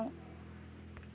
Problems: background sounds at intervals